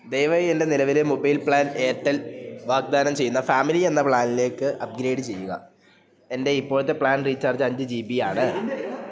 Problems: background conversations at intervals, low volume